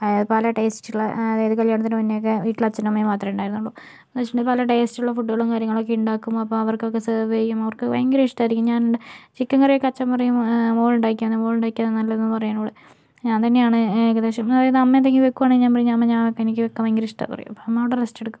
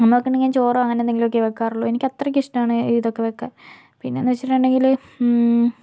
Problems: none marked